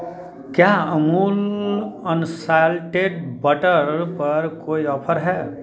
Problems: continuous background conversations